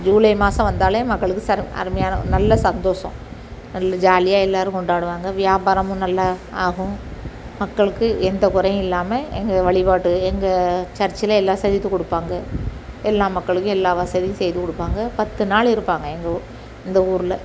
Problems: none marked